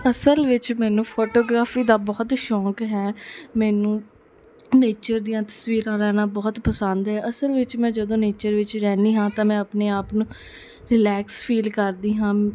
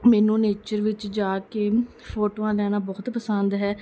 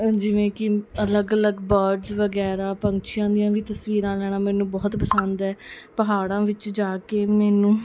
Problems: background sounds at intervals, background conversations at intervals